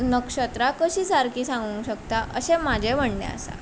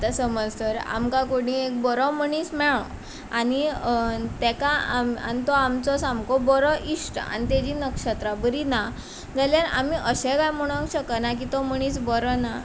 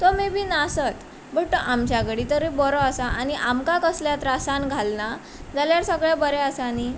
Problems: constant background noise